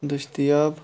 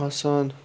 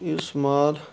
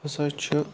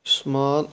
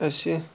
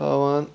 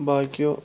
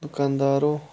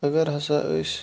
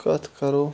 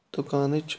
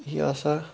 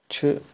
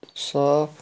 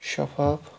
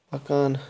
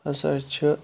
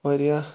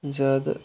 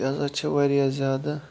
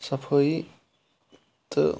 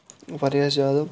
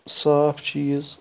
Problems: constant background noise